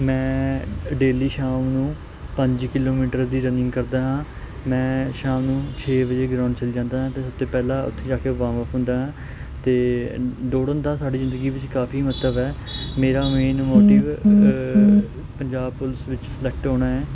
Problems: background sounds at intervals